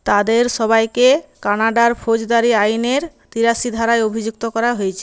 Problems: none marked